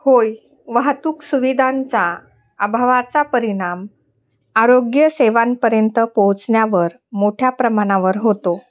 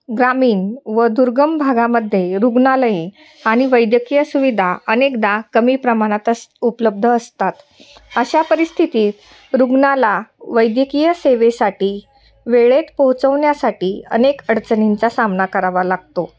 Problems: constant background noise, continuous background conversations